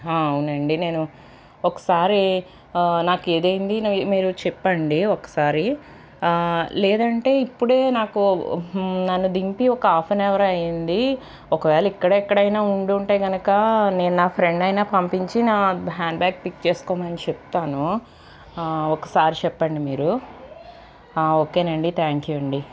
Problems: constant background noise, background conversations at intervals